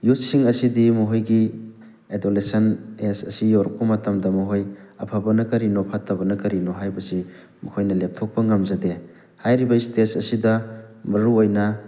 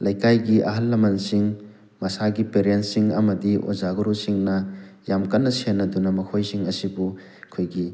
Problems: none marked